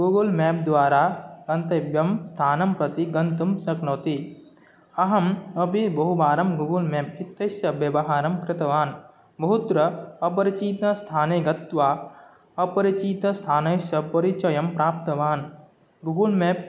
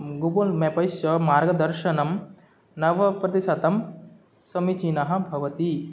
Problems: none marked